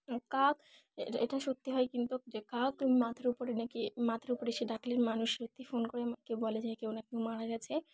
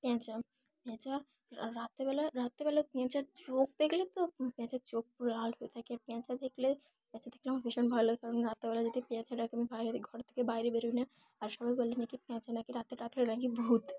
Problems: none marked